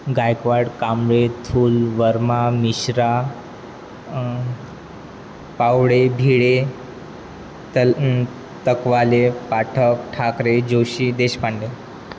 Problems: constant background noise